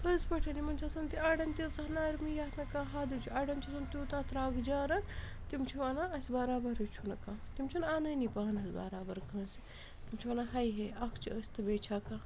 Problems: constant background noise, background conversations at intervals